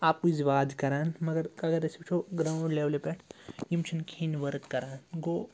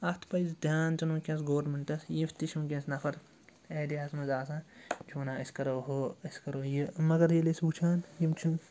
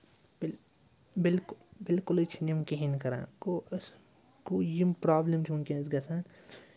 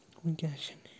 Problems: constant background noise